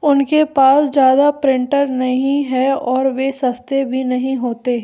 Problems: none marked